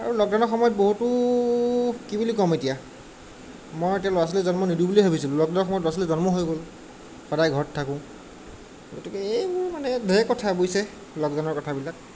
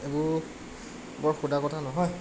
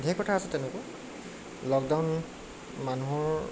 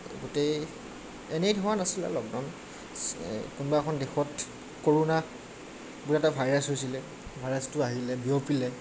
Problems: none marked